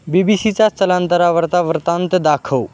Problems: constant background noise